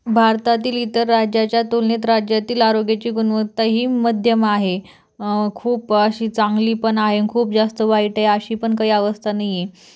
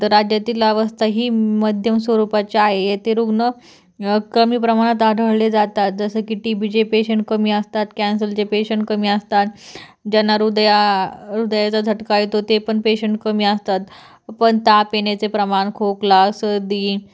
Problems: none marked